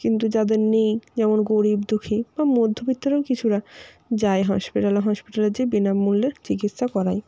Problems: constant background noise